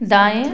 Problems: background sounds at intervals